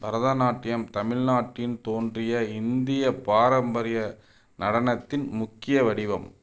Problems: none marked